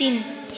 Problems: constant background noise